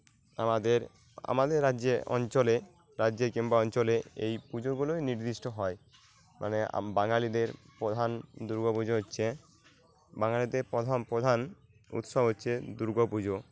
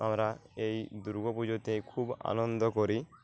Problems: constant background noise